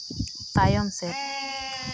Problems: constant background noise